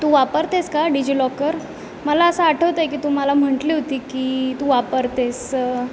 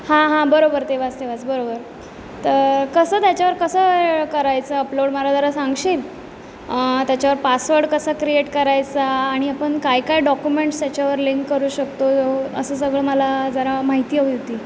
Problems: none marked